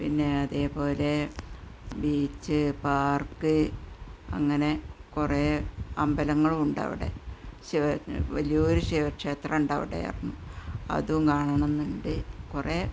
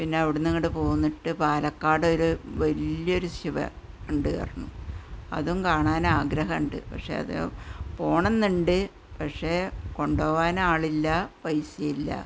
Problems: none marked